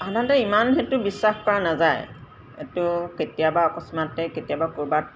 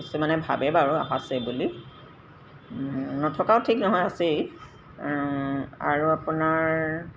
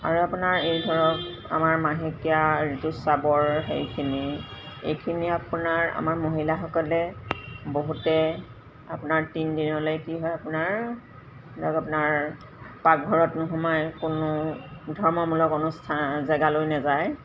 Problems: constant background noise